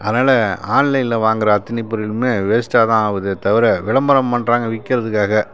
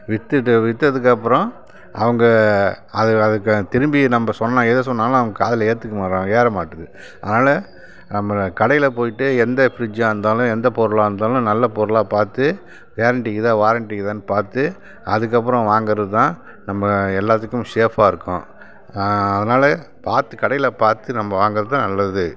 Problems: constant background noise